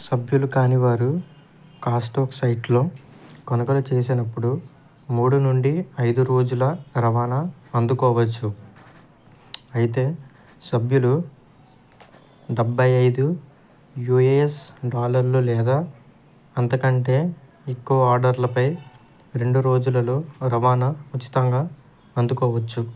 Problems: background sounds at intervals